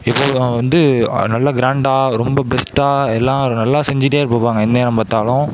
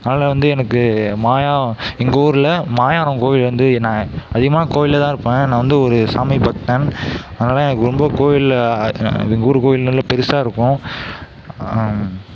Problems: none marked